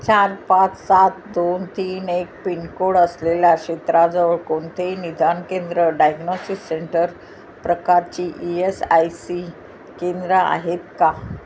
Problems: none marked